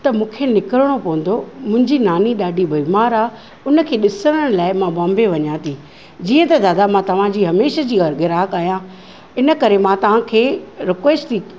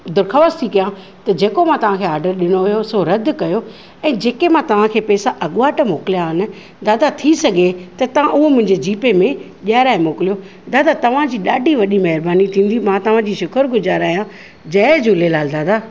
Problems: none marked